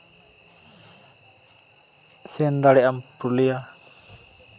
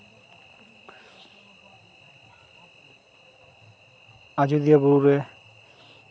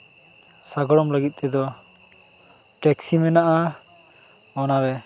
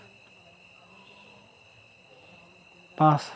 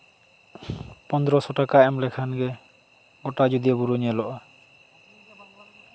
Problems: constant background noise, continuous background conversations